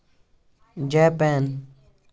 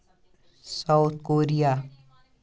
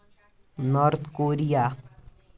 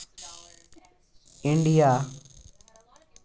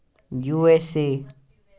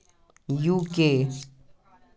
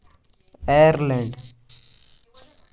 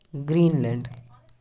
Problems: background sounds at intervals